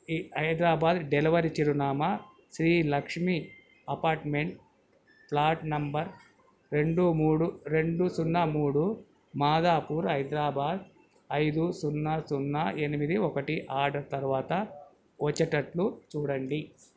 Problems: none marked